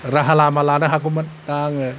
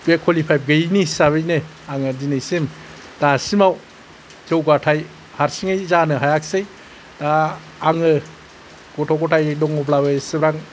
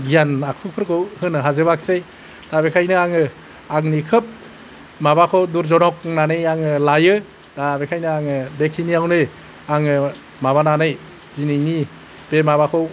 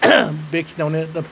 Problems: none marked